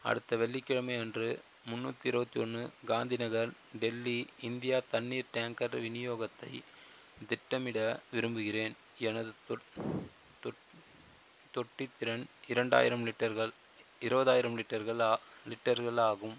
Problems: constant background noise